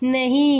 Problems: background sounds at intervals